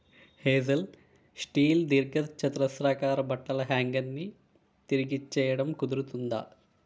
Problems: constant background noise